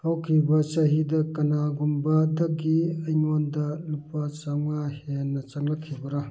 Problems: background sounds at intervals